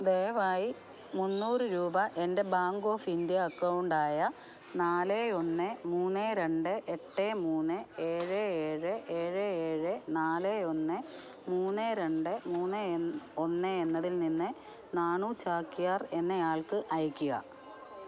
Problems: none marked